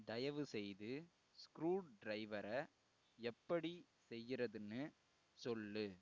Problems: low volume